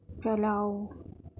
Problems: none marked